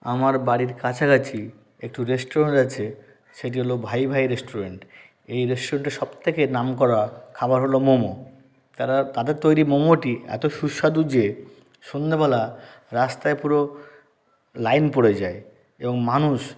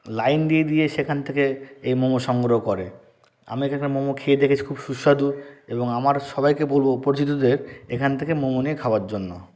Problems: constant background noise